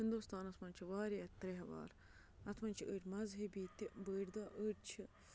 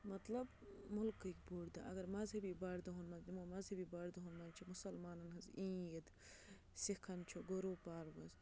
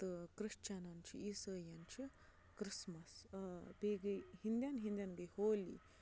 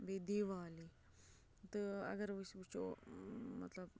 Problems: constant background noise, low volume